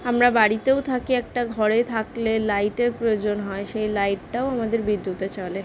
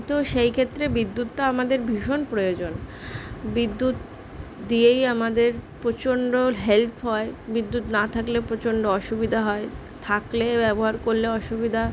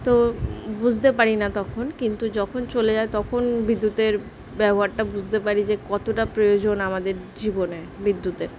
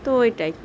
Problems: constant background noise